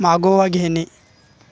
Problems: none marked